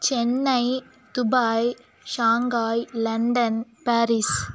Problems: background sounds at intervals